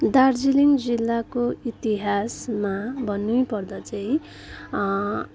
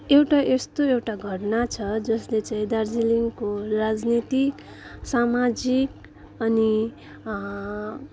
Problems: background sounds at intervals, continuous background conversations